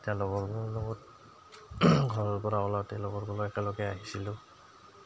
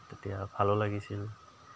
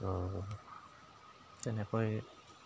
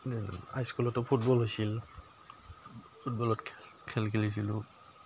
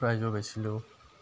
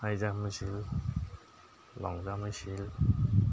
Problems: background sounds at intervals, background conversations at intervals